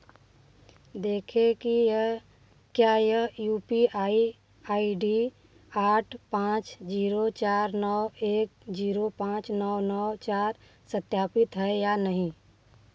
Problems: background sounds at intervals